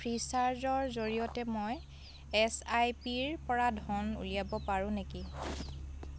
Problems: constant background noise, continuous background conversations